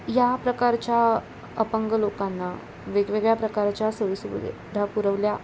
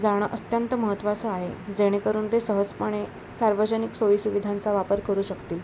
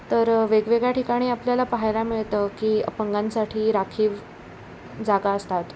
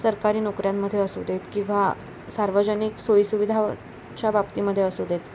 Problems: none marked